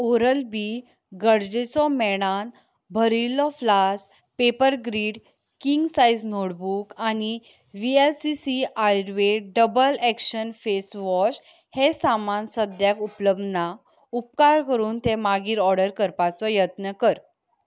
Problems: background sounds at intervals